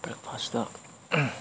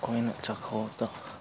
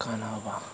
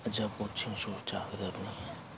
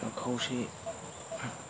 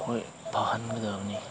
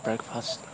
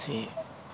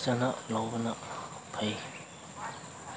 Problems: background sounds at intervals